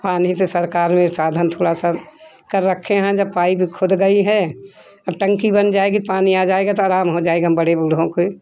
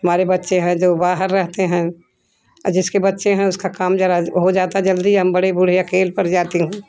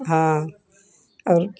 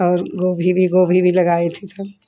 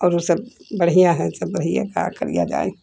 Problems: constant background noise